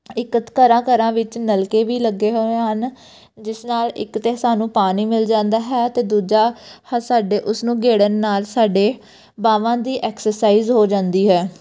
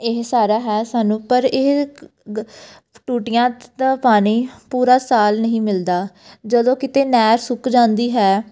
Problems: none marked